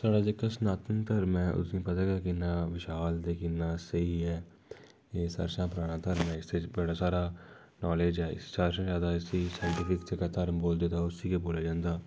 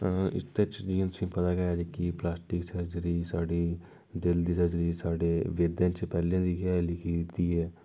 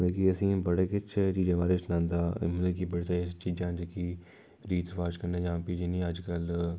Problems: none marked